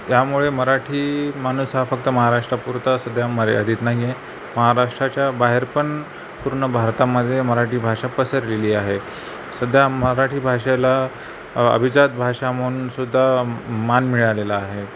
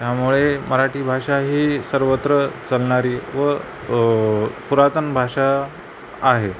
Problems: constant background noise